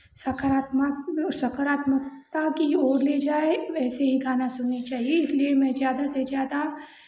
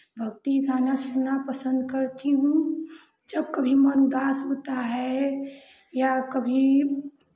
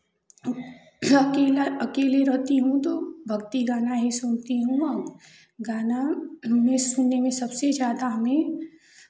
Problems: constant background noise, continuous background conversations